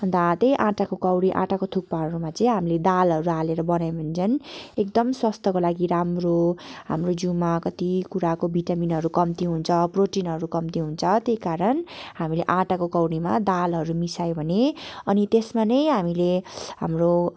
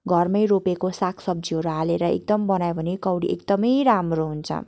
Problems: background sounds at intervals